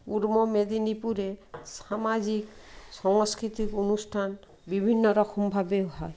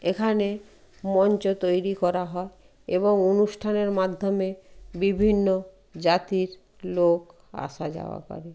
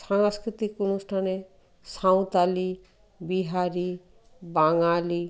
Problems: none marked